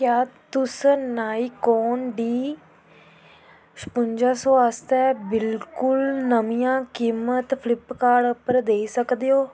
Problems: none marked